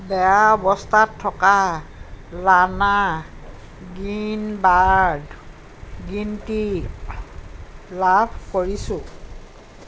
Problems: none marked